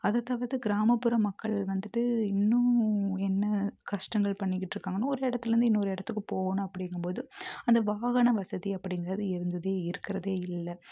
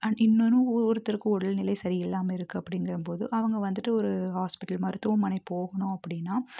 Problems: none marked